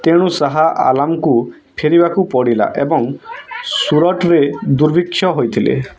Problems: background conversations at intervals